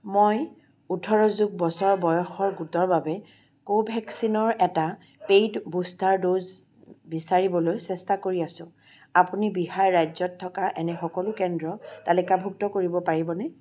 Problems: constant background noise